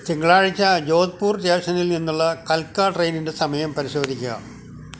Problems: none marked